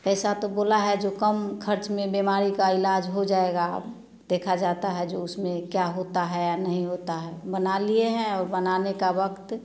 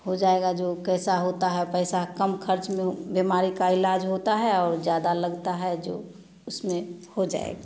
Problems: none marked